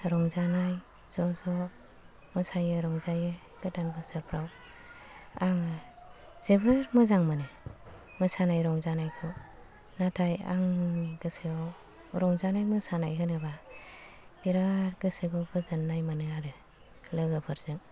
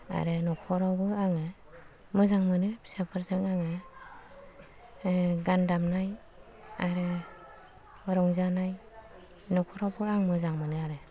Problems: low volume